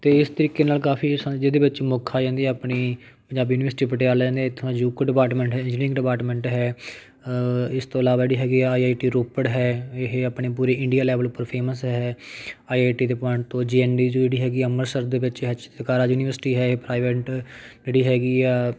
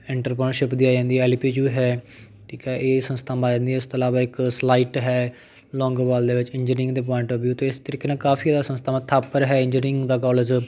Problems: none marked